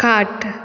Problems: constant background noise